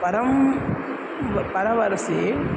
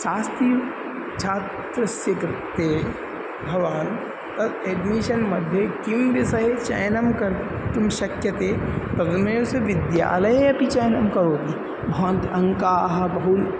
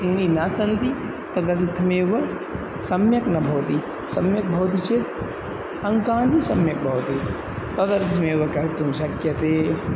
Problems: none marked